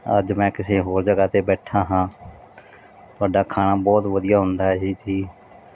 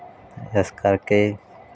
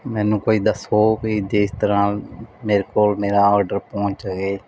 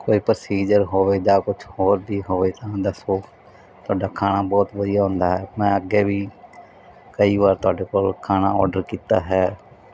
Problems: background sounds at intervals